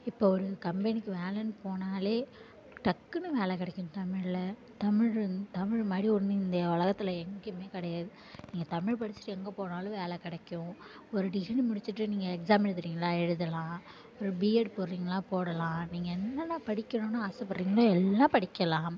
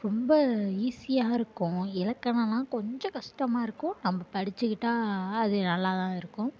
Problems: constant background noise